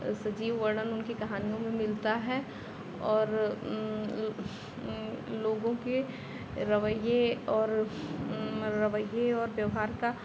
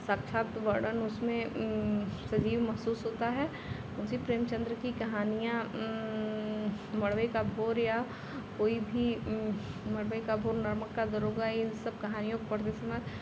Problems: none marked